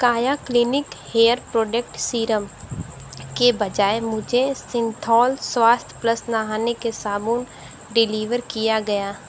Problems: constant background noise